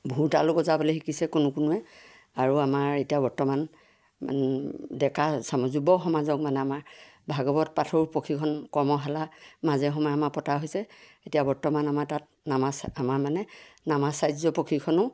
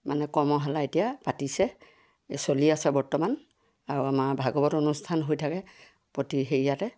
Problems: none marked